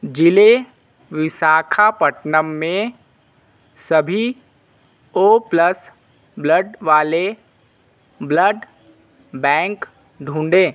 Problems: constant background noise